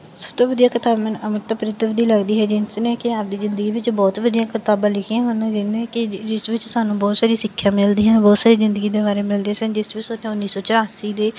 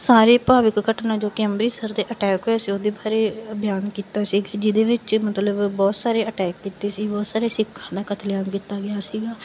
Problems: none marked